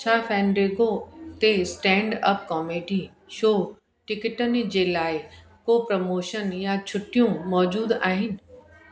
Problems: constant background noise, echo